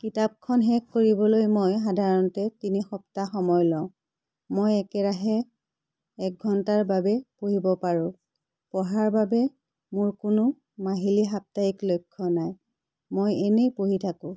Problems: none marked